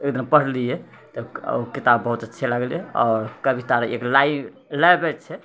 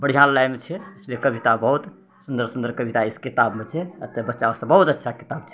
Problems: none marked